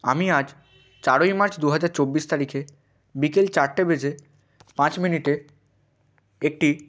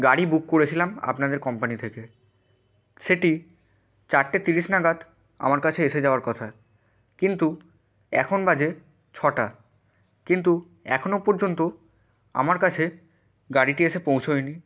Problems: constant background noise